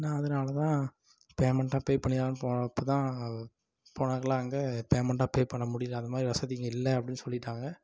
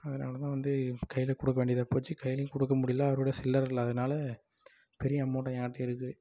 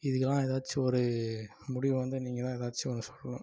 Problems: low volume